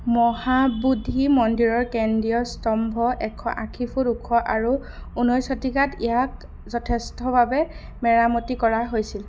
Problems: none marked